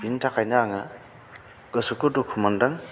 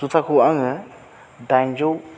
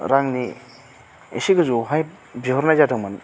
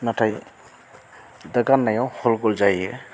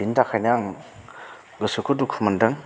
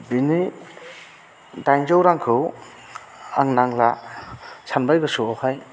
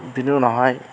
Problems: constant background noise